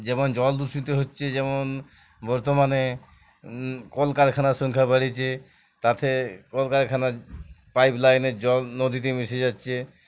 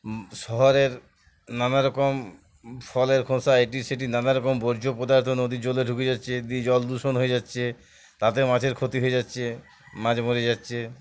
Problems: background sounds at intervals